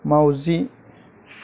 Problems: none marked